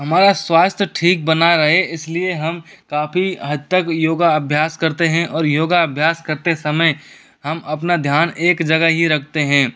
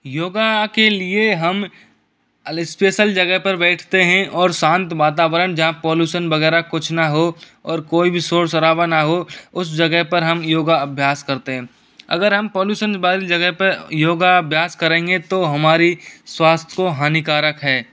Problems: constant background noise